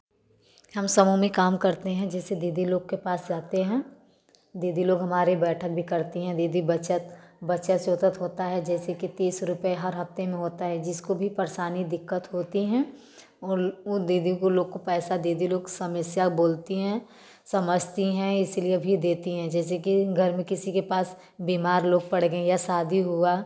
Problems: background sounds at intervals